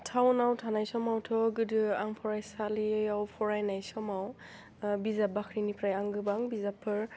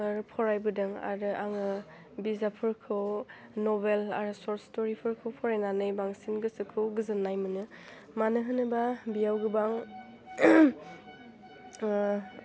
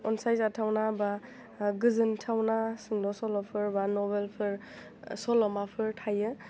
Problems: constant background noise